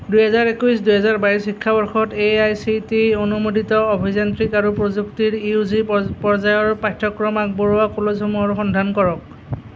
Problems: none marked